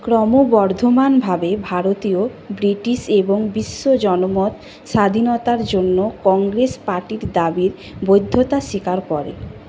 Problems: none marked